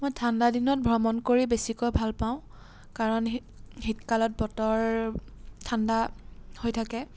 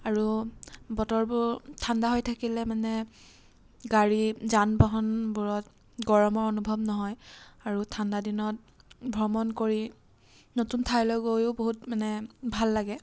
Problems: background sounds at intervals